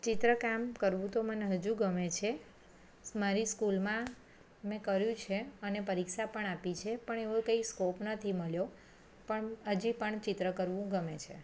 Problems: none marked